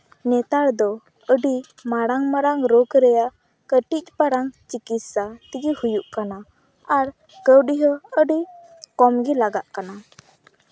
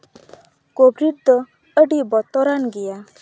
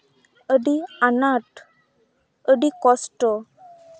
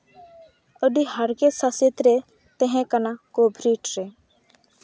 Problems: background sounds at intervals